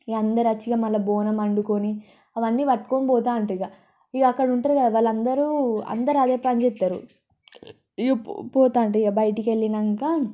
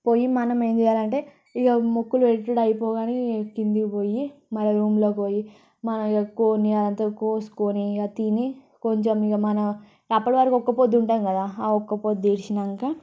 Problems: background sounds at intervals, low volume